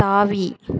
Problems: none marked